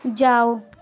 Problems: constant background noise